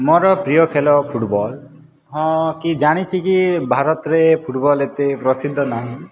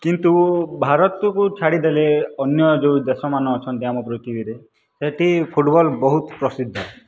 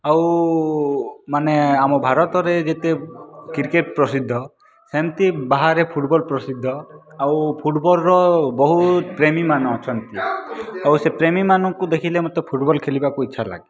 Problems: background sounds at intervals